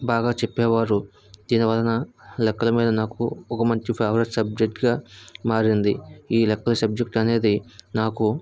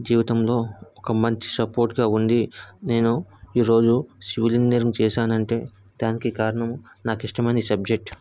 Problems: none marked